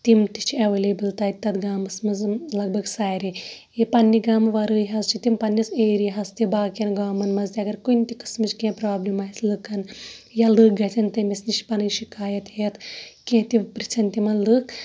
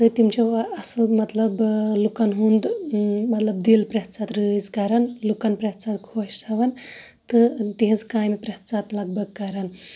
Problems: none marked